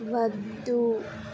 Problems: low volume